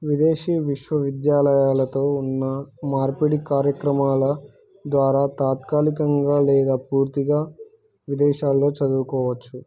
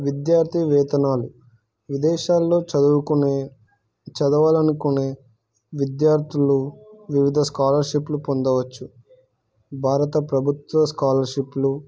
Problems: none marked